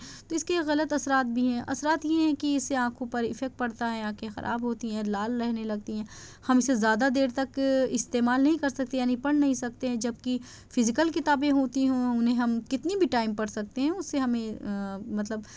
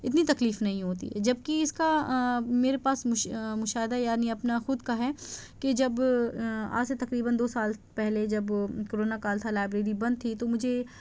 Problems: none marked